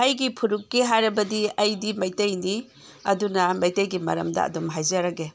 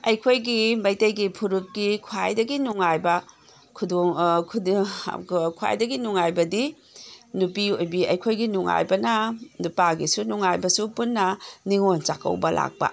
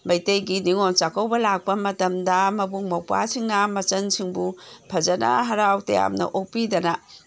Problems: background sounds at intervals